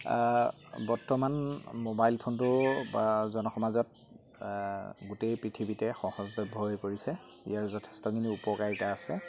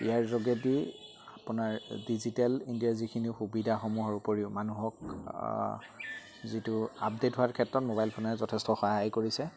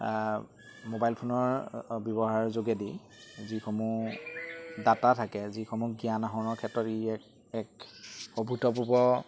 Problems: constant background noise